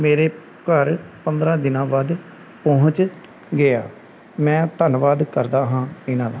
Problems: none marked